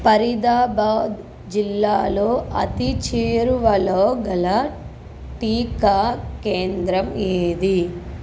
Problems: constant background noise